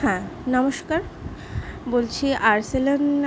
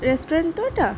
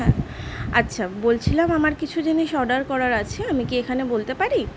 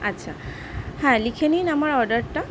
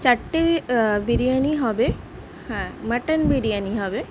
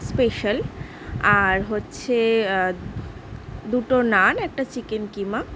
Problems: continuous background conversations